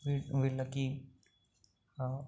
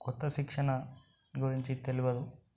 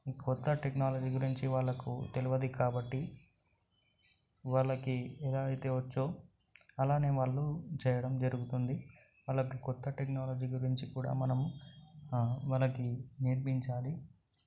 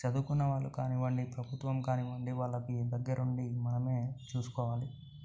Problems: none marked